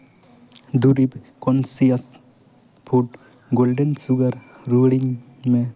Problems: constant background noise, echo